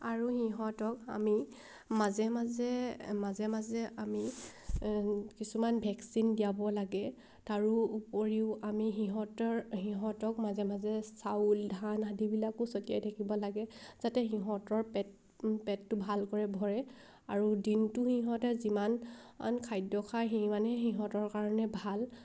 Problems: background sounds at intervals